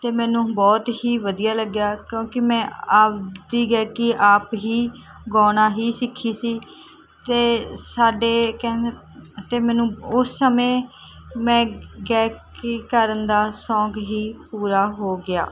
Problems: constant background noise